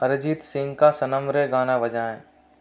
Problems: none marked